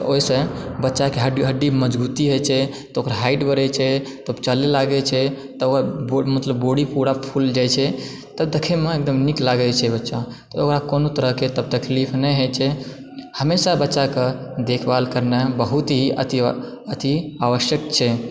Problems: none marked